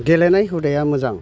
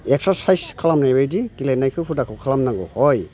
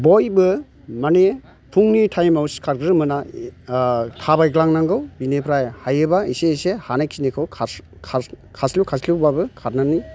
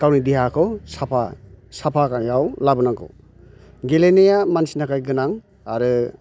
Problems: constant background noise